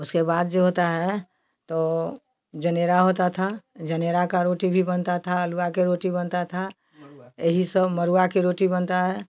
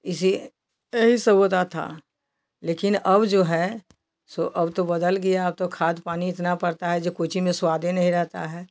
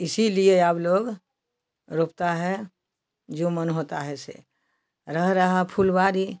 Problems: none marked